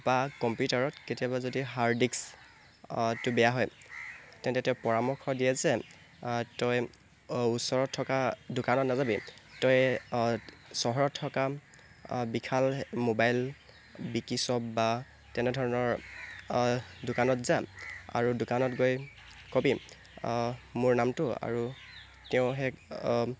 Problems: constant background noise